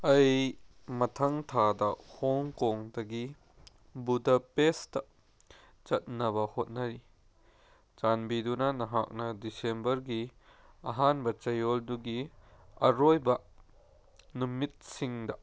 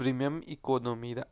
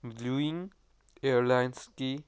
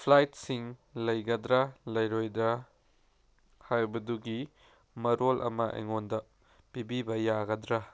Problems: none marked